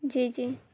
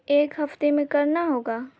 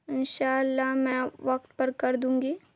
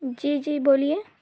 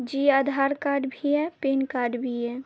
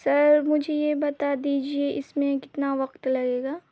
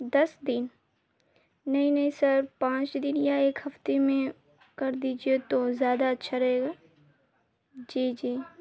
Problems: constant background noise, low volume